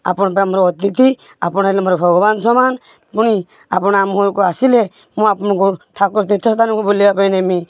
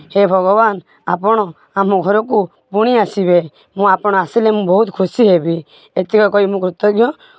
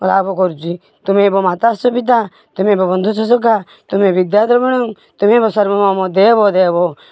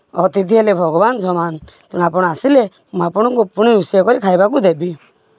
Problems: none marked